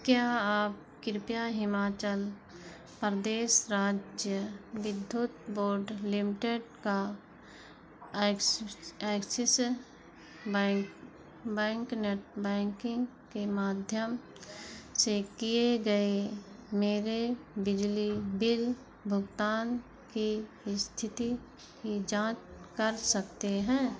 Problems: constant background noise